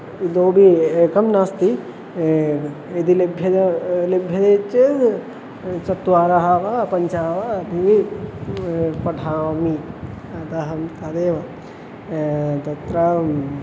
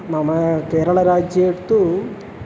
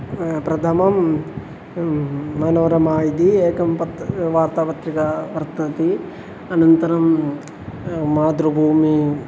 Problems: constant background noise